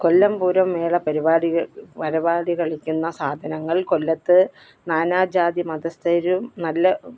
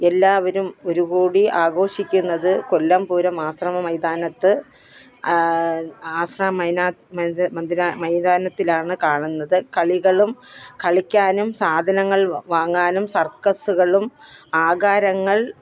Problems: background sounds at intervals, background conversations at intervals